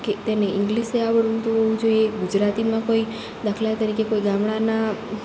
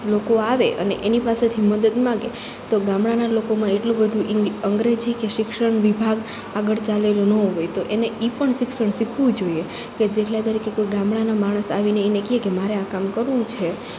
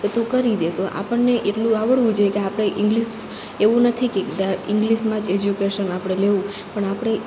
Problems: none marked